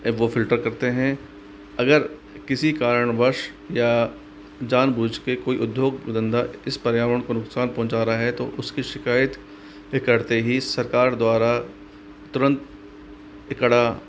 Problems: constant background noise